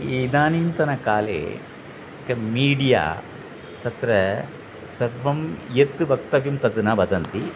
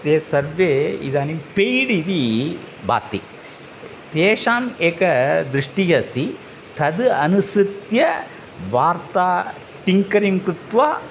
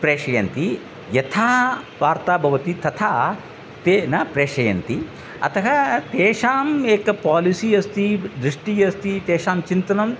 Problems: none marked